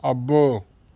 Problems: constant background noise